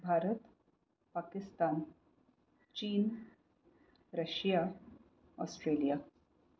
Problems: low volume